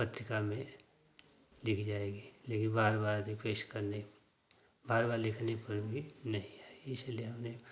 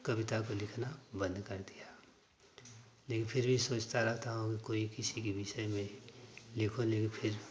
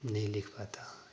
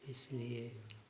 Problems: none marked